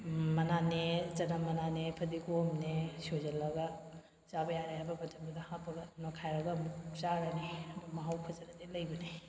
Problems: none marked